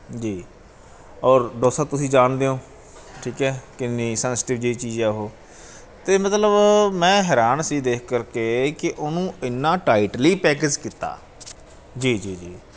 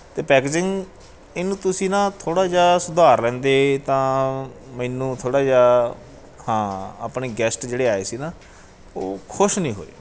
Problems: background sounds at intervals